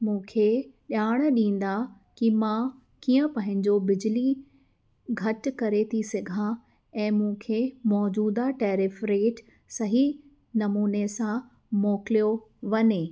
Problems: none marked